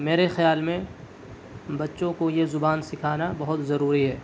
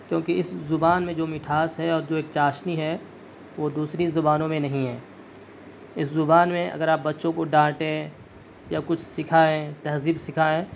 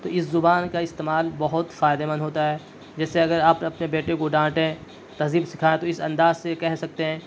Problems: none marked